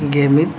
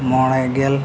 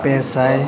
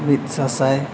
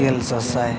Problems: none marked